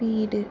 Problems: constant background noise, low volume